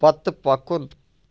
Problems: background sounds at intervals